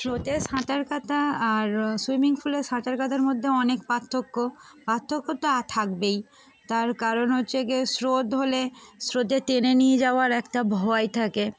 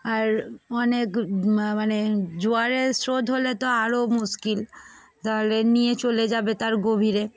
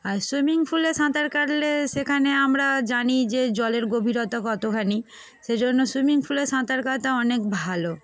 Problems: background sounds at intervals